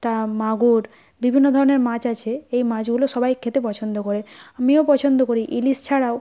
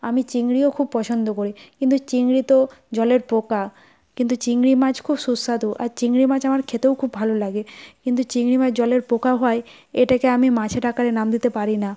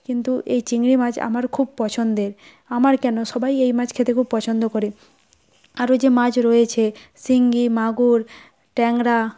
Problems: background sounds at intervals